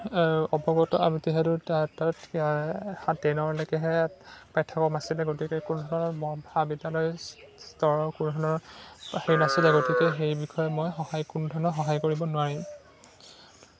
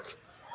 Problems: constant background noise, background conversations at intervals